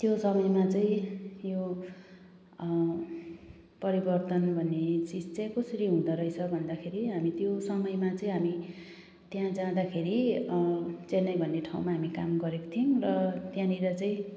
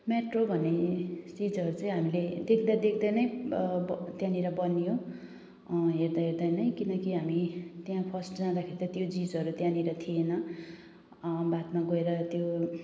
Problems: none marked